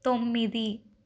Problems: none marked